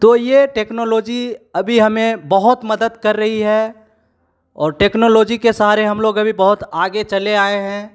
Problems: none marked